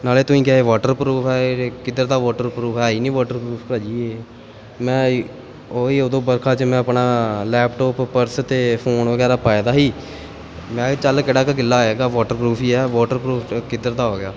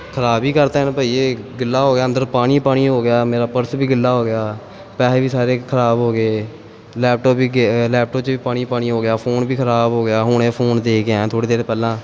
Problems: background sounds at intervals